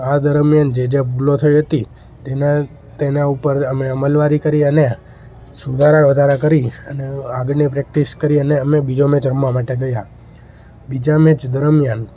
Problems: constant background noise